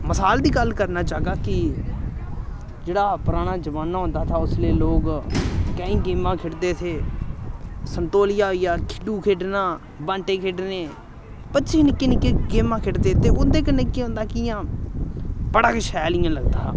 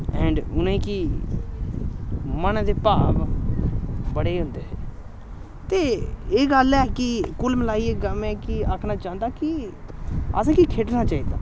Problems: constant background noise